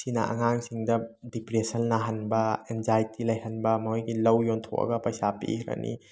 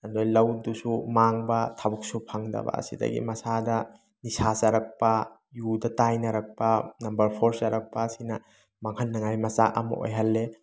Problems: background sounds at intervals